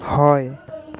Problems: background conversations at intervals